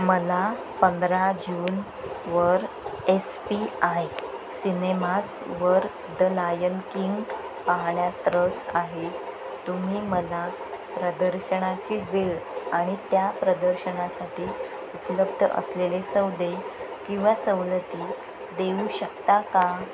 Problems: constant background noise